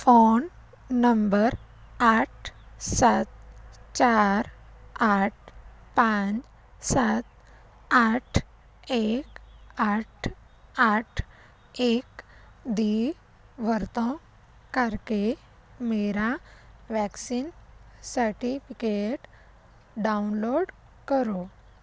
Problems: background sounds at intervals